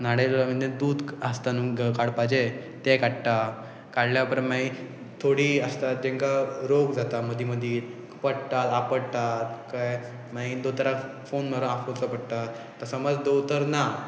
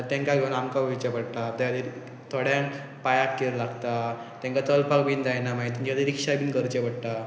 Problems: constant background noise